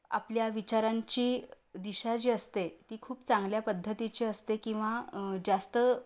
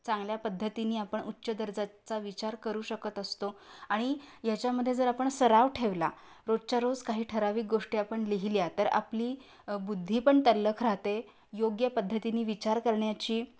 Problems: constant background noise